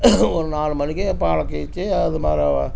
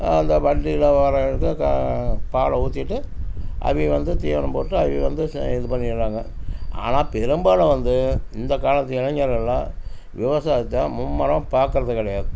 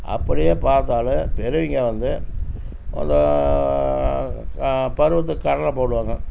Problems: constant background noise